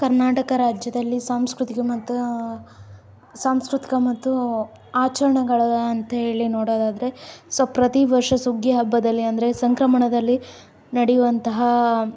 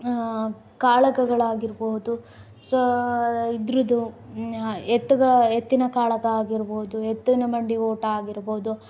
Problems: background sounds at intervals